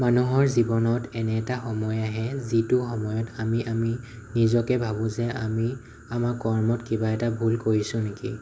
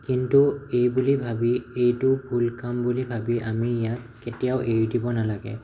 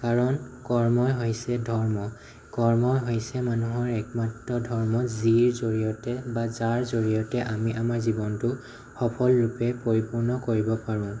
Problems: none marked